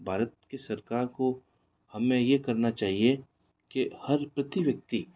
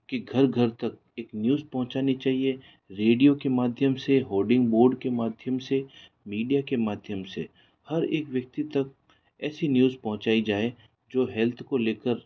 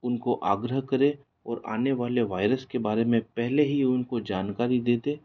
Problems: none marked